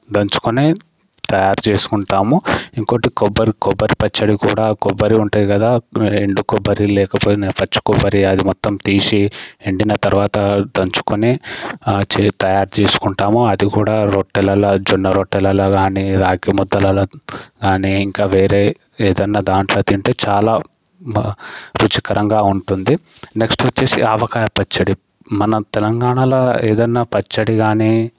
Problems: background sounds at intervals